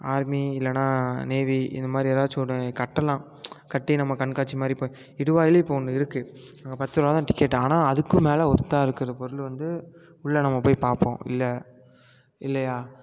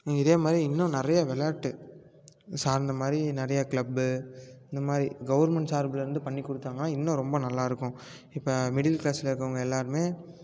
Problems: none marked